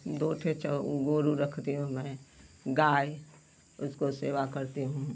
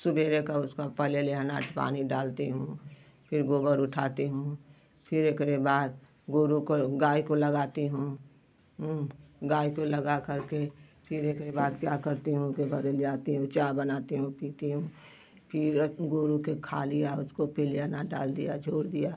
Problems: none marked